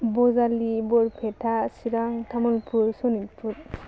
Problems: none marked